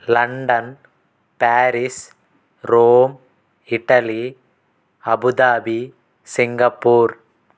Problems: constant background noise